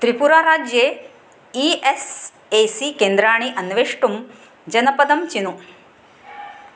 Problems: none marked